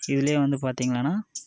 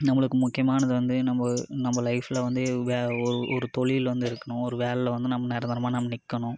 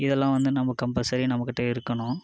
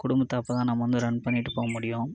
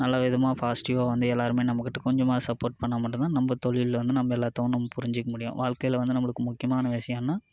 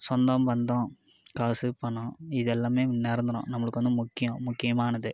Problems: none marked